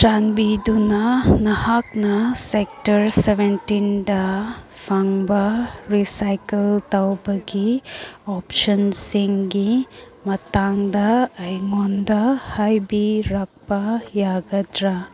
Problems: background sounds at intervals